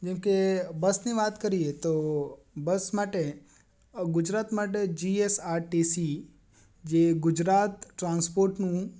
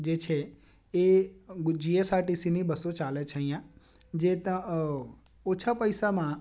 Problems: none marked